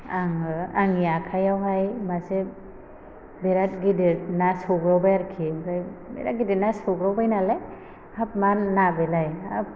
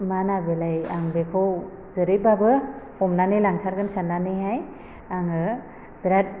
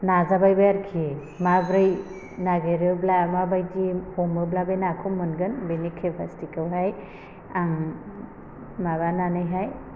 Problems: constant background noise